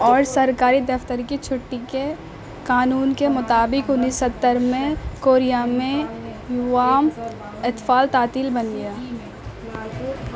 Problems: constant background noise